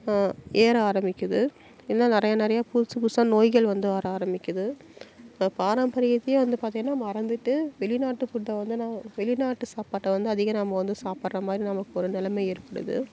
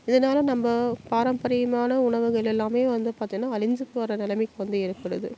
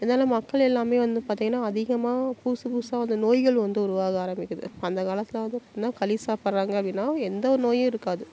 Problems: constant background noise